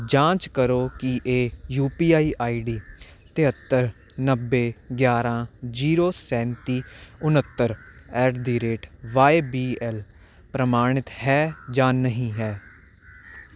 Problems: constant background noise